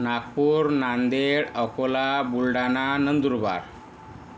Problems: none marked